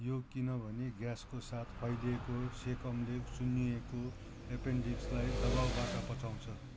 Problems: constant background noise